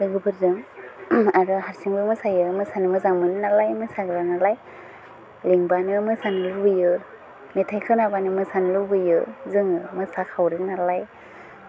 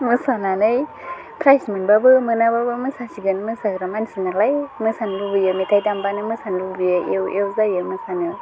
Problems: constant background noise